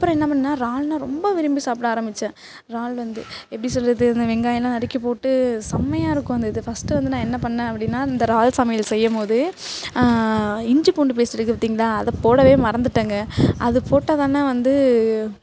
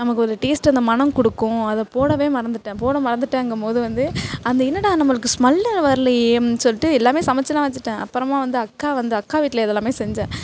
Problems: none marked